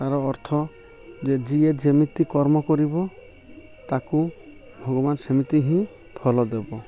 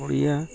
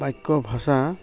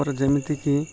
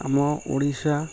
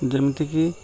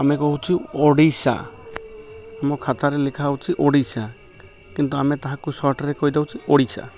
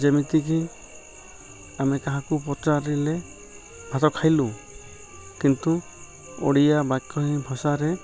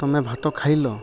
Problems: background sounds at intervals